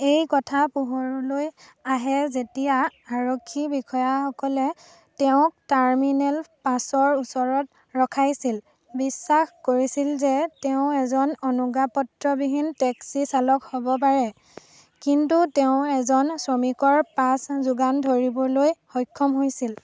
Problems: none marked